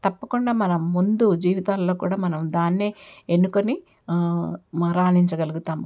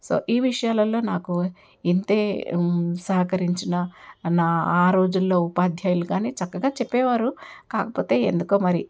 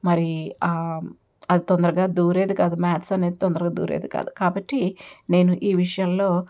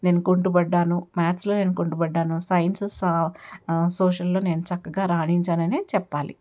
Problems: background sounds at intervals